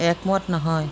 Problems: constant background noise